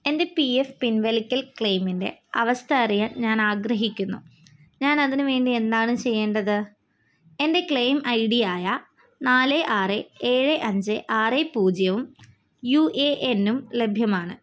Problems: none marked